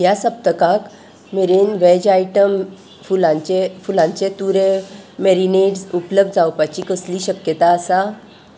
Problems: constant background noise